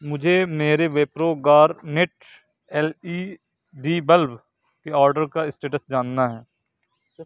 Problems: none marked